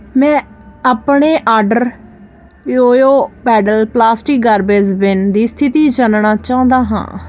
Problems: constant background noise